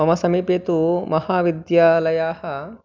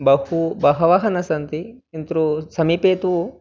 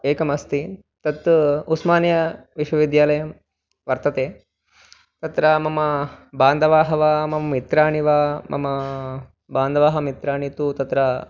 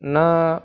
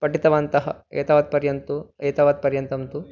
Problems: none marked